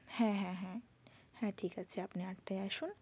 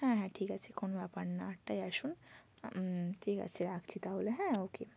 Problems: constant background noise